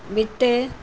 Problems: constant background noise